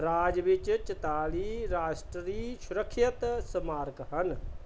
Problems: background sounds at intervals